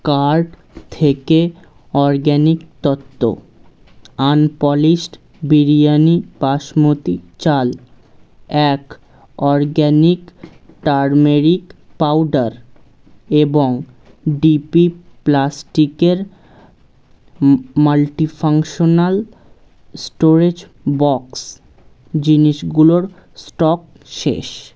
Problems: constant background noise